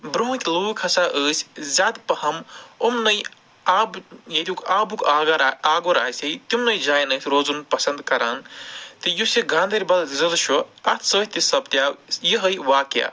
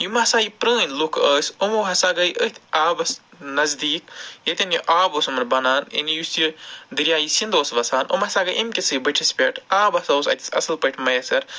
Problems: none marked